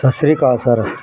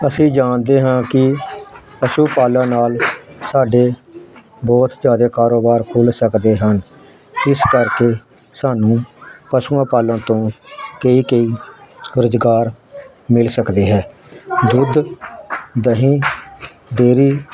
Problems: constant background noise